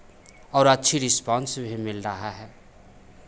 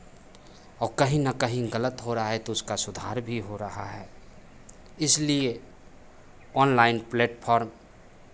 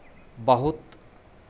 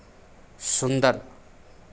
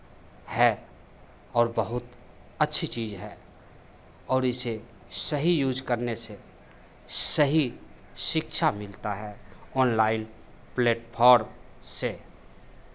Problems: constant background noise, background conversations at intervals